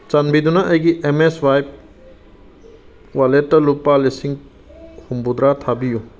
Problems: background sounds at intervals